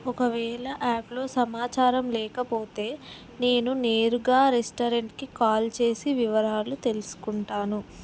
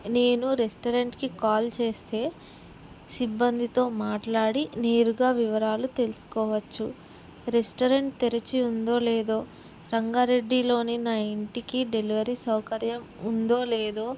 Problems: none marked